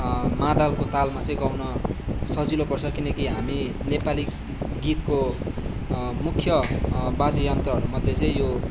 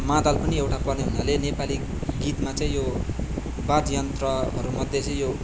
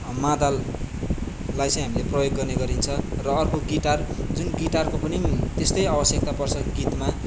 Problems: none marked